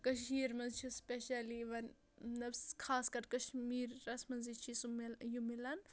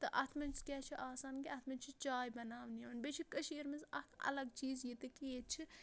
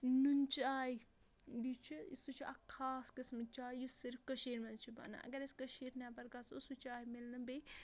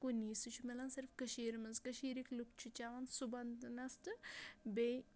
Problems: background sounds at intervals